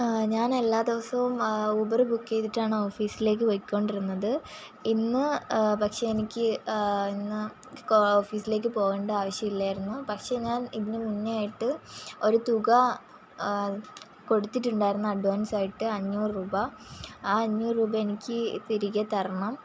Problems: constant background noise